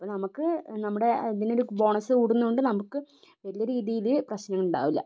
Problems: low volume